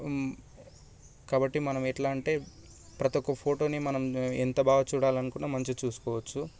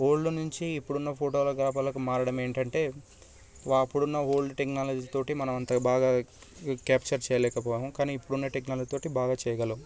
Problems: constant background noise